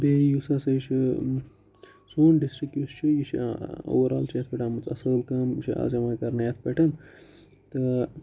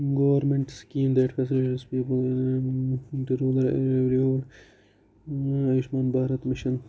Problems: low volume